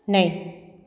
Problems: none marked